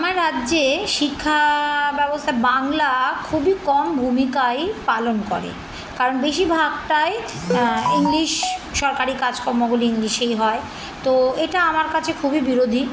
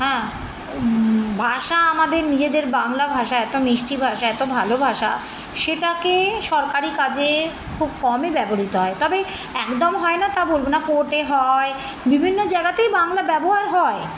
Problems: background sounds at intervals